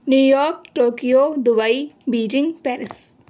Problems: none marked